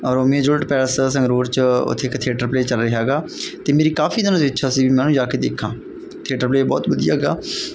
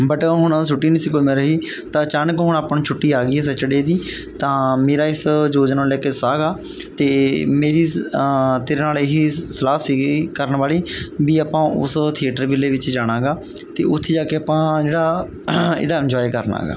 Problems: background sounds at intervals